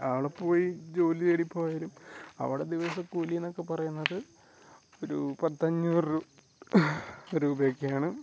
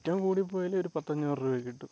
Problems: none marked